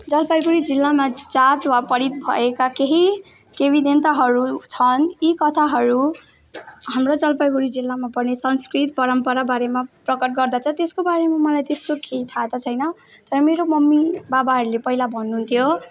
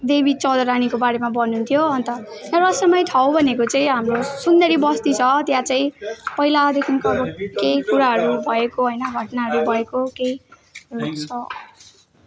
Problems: continuous background conversations